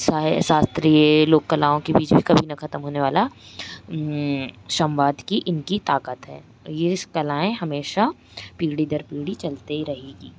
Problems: constant background noise